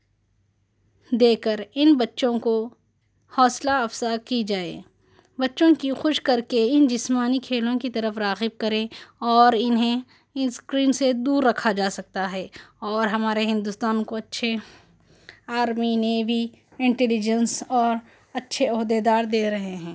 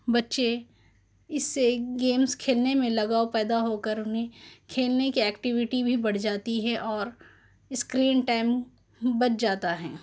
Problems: none marked